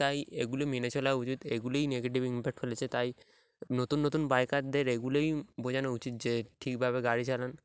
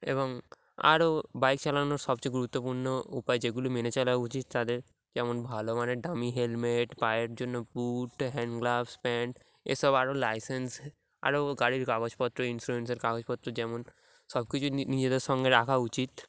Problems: background sounds at intervals